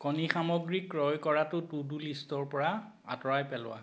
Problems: background sounds at intervals